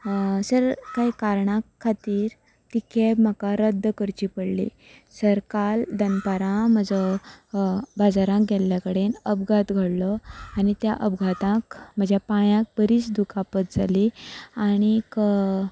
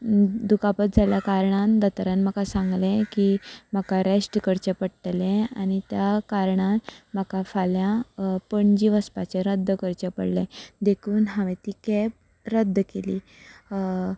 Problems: constant background noise